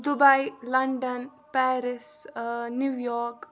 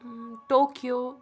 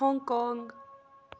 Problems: background conversations at intervals